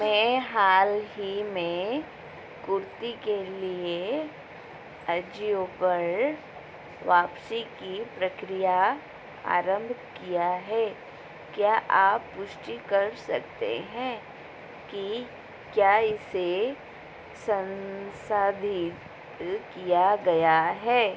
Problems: constant background noise